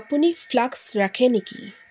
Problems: background sounds at intervals